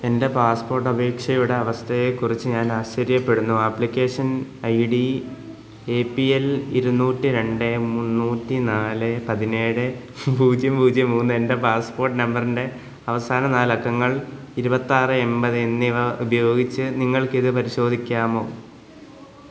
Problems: background sounds at intervals